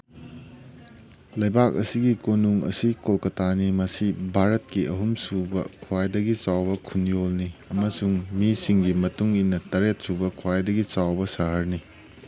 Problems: constant background noise